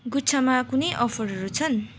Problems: background sounds at intervals